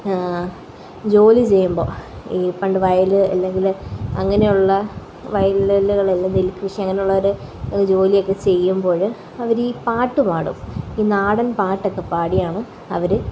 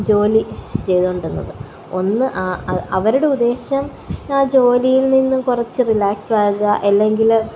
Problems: constant background noise, background conversations at intervals